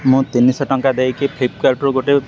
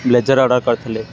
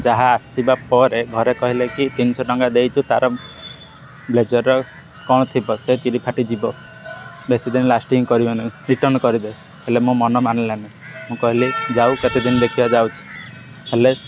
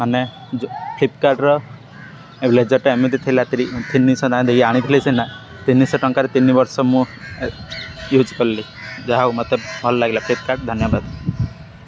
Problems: constant background noise